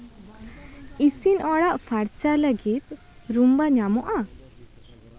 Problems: constant background noise